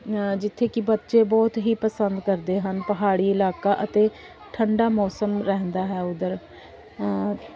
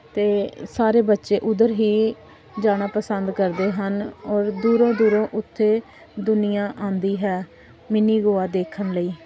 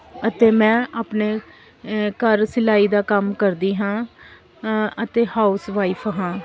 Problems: background sounds at intervals